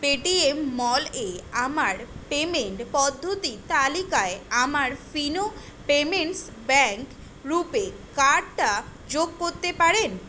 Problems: none marked